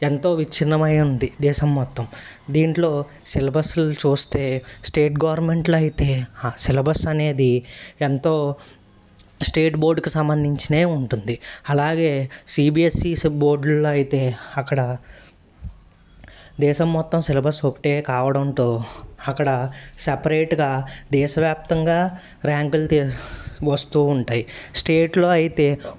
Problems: none marked